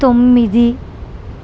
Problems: none marked